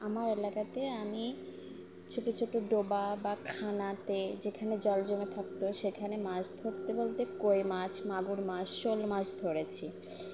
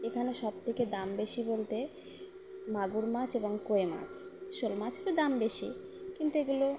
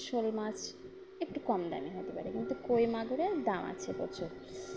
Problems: none marked